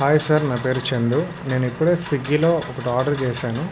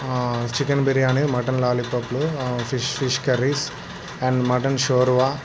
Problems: constant background noise